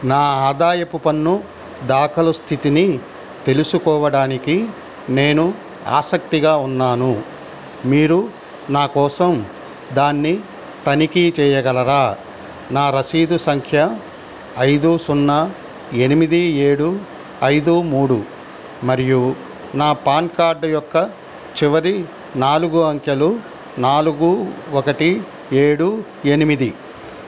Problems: constant background noise